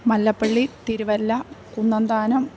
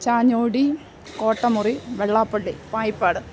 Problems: background sounds at intervals